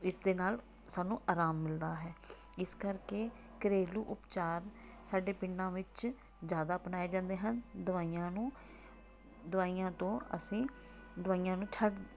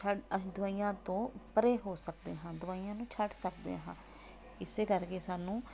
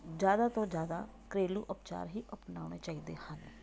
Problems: background sounds at intervals